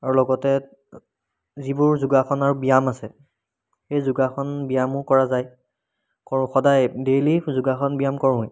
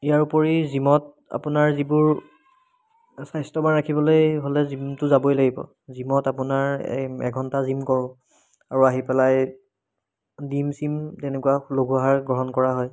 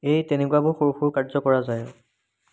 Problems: background sounds at intervals